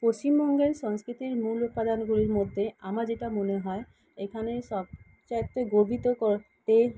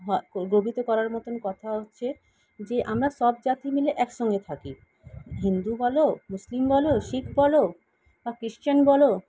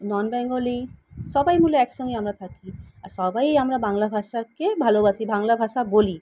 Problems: background sounds at intervals